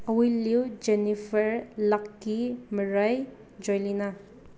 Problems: constant background noise